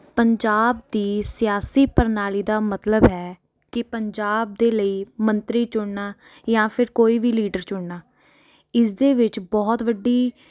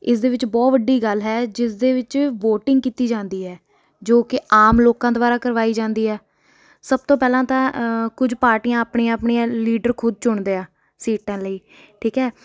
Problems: background conversations at intervals